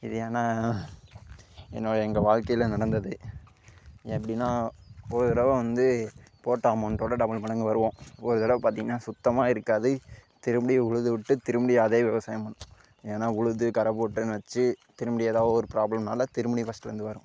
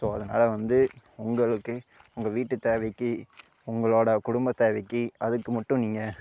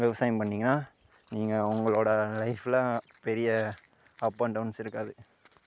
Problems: none marked